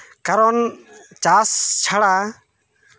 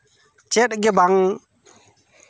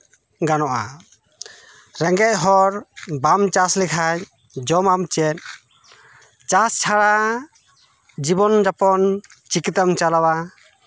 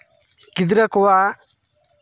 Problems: constant background noise, continuous background conversations